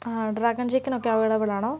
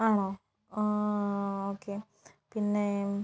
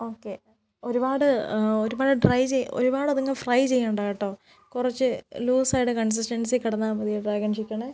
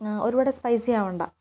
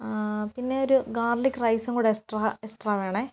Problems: background sounds at intervals